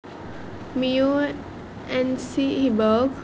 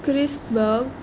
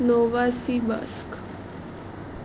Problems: constant background noise